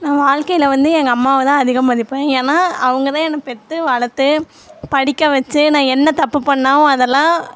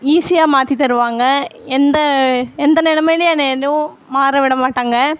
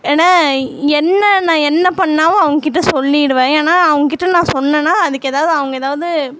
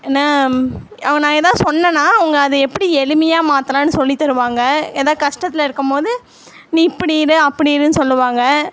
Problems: constant background noise